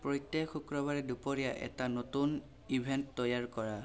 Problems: constant background noise